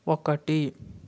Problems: constant background noise